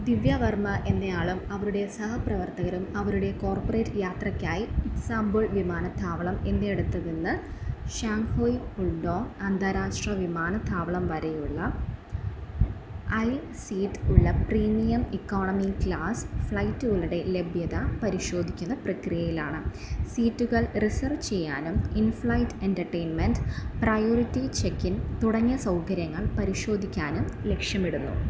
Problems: none marked